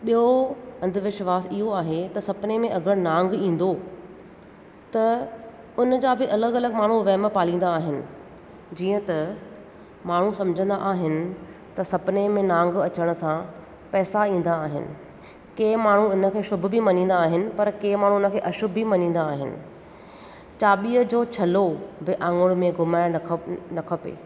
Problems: echo